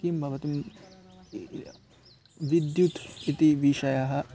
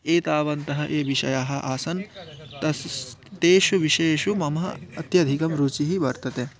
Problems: none marked